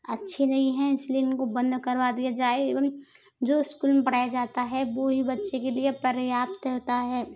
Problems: background sounds at intervals